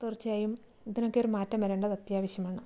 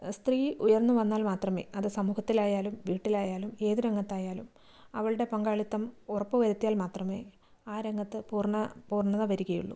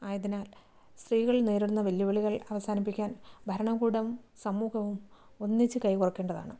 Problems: none marked